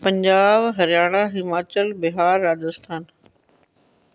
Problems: none marked